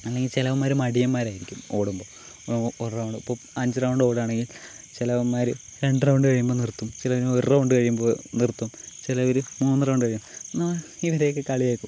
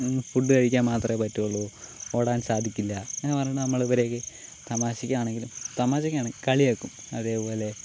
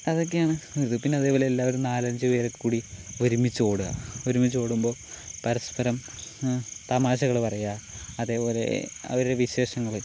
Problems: none marked